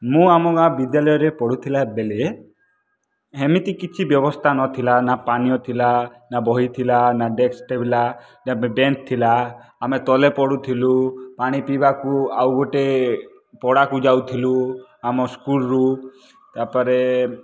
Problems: background sounds at intervals